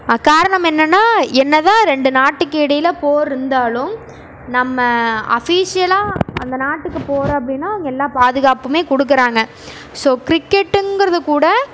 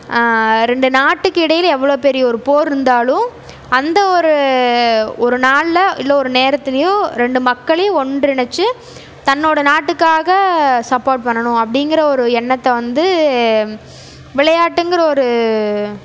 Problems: none marked